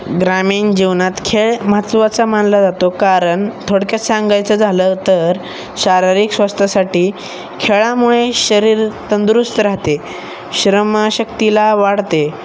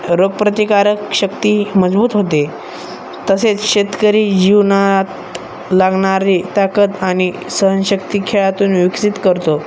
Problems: constant background noise, background conversations at intervals